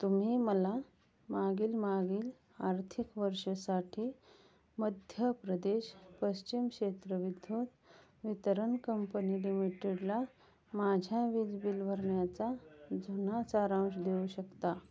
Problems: none marked